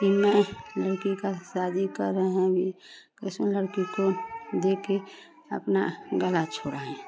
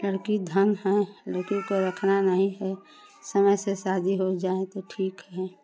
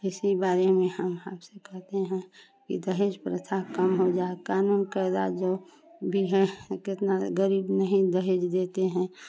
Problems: constant background noise, continuous background conversations